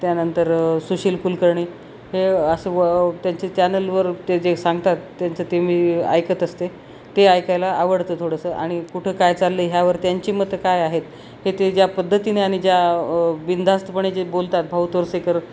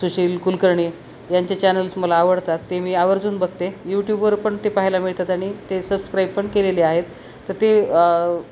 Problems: none marked